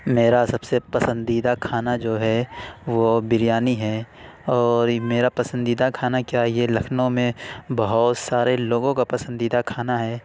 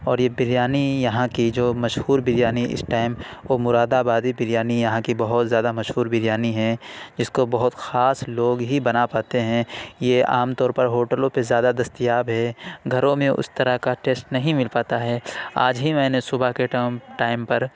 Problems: none marked